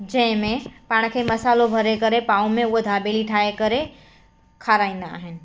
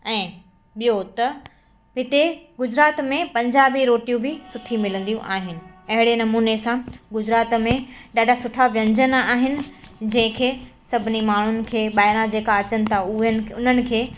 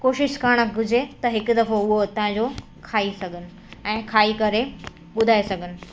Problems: constant background noise, echo